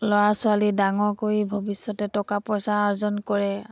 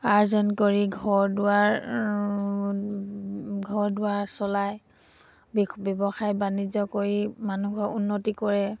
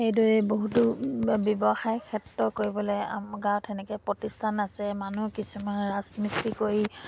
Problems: background sounds at intervals